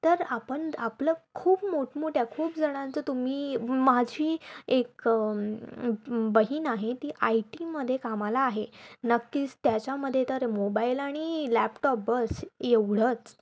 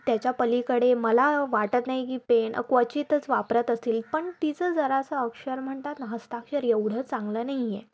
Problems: none marked